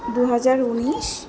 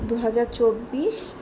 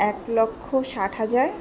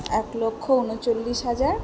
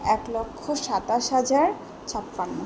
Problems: background sounds at intervals